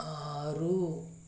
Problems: low volume